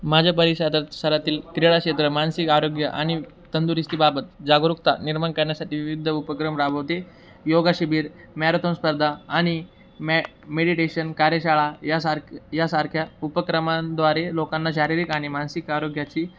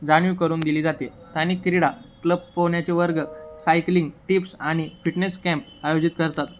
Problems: constant background noise